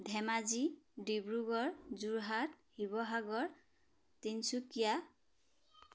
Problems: none marked